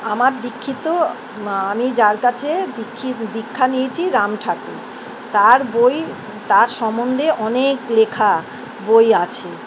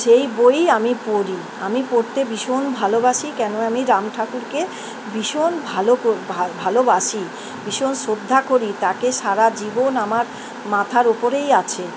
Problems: constant background noise